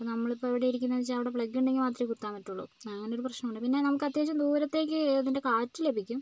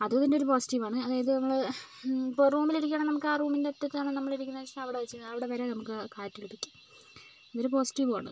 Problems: low volume